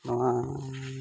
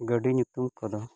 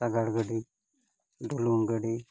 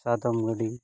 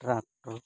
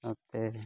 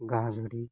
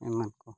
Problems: none marked